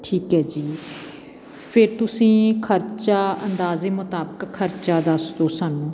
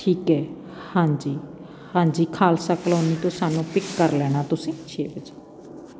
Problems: background sounds at intervals